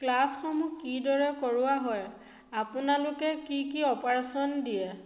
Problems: none marked